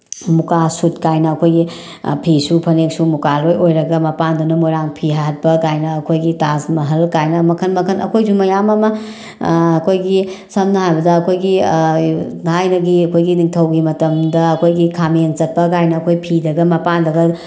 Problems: none marked